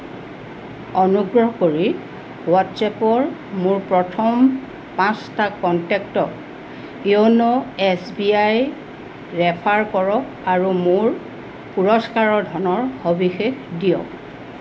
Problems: constant background noise